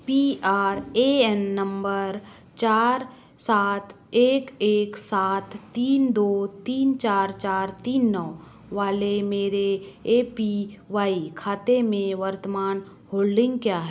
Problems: background sounds at intervals